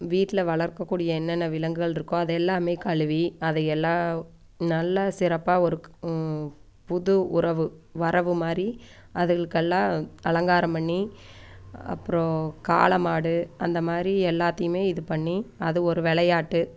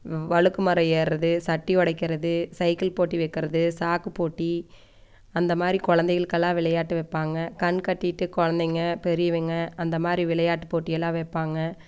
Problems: none marked